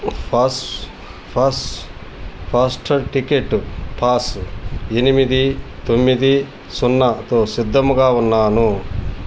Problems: constant background noise